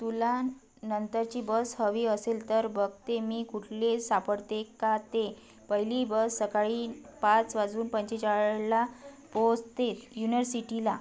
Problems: none marked